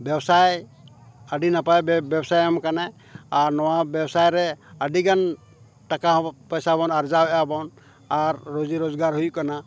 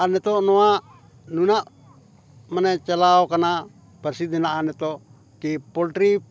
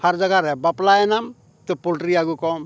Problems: none marked